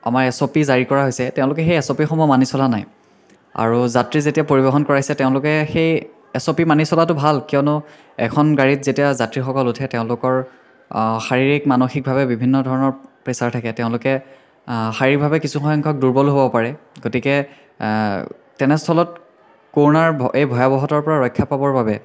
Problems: constant background noise, continuous background conversations